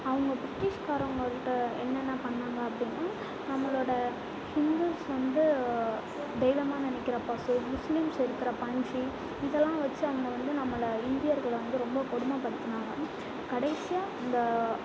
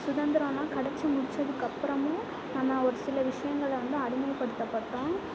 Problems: background sounds at intervals, low volume